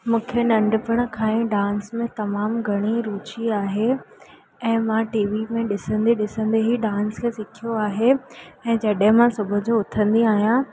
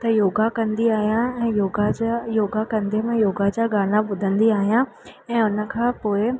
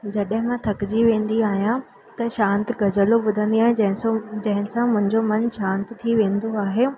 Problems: constant background noise